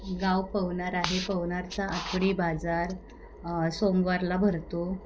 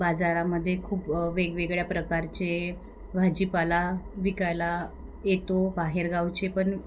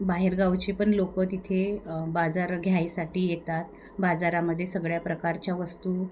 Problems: none marked